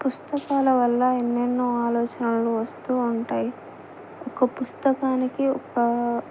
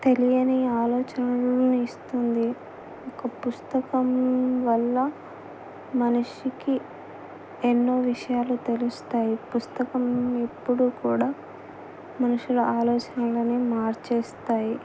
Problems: none marked